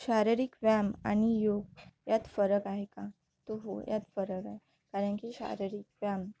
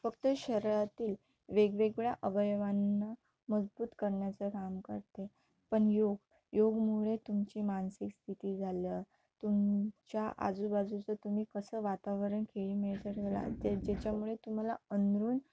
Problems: none marked